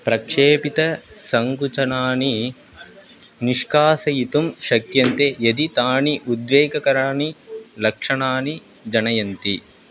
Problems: constant background noise